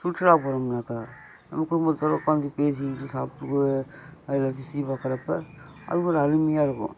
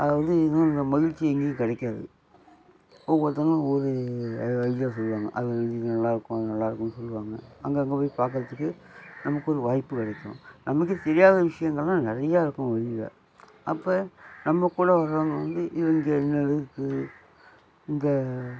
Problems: background sounds at intervals